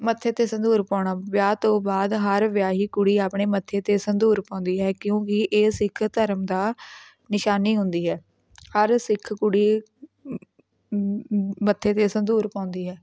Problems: background sounds at intervals, background conversations at intervals